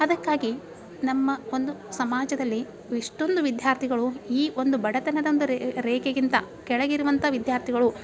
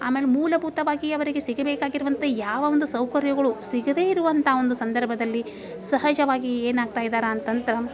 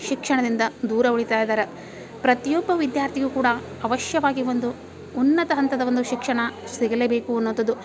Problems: background sounds at intervals